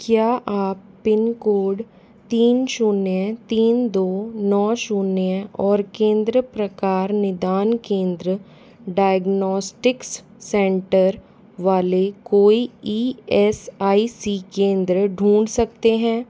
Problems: none marked